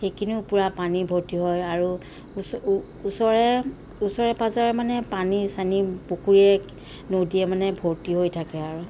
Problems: constant background noise